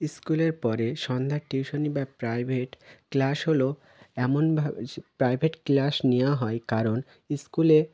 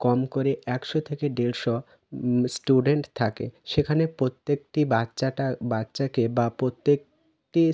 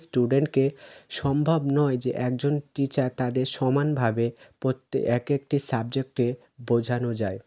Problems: none marked